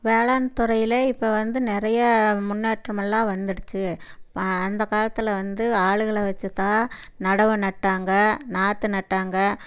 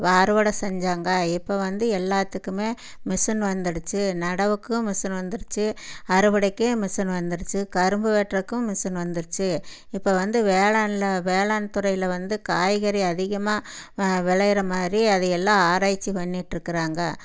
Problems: none marked